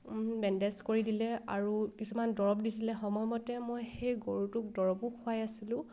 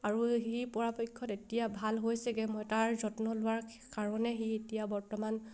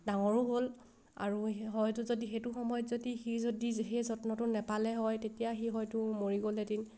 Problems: background sounds at intervals